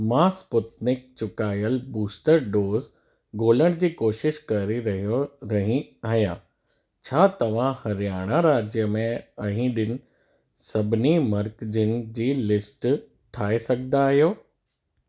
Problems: none marked